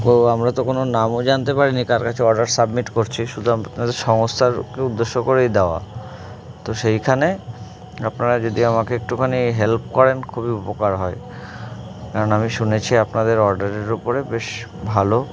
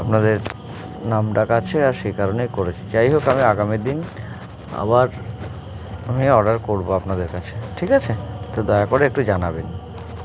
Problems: constant background noise, continuous background conversations